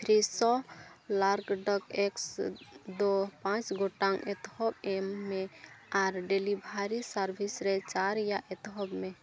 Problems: background sounds at intervals, background conversations at intervals